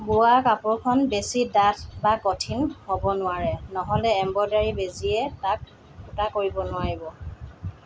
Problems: none marked